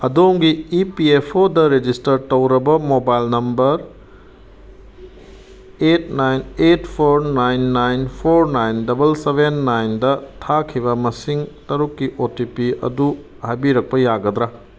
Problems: background sounds at intervals